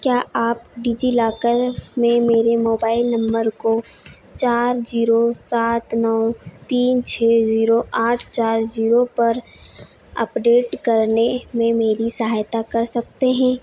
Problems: none marked